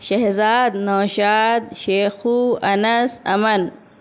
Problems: none marked